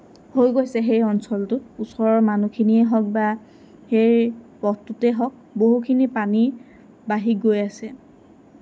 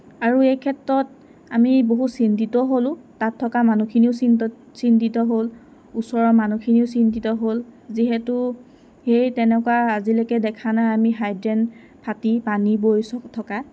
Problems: constant background noise